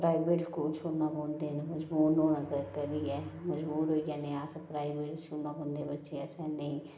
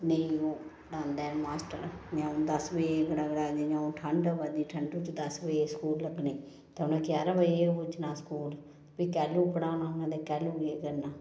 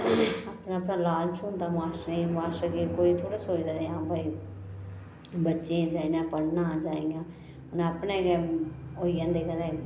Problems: low volume